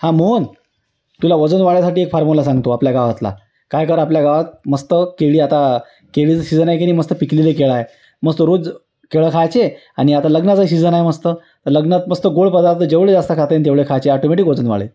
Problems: constant background noise